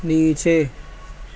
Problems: constant background noise